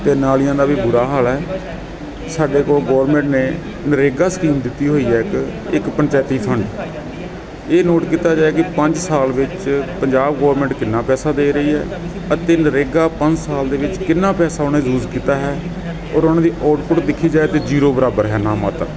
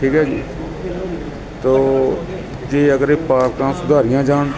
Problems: constant background noise, background conversations at intervals